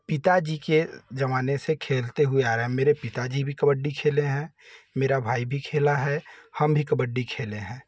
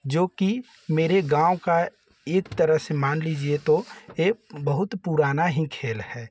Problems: none marked